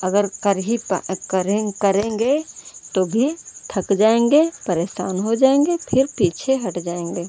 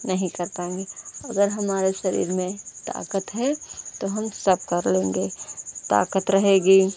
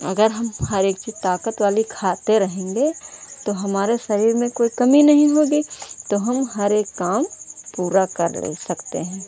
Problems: none marked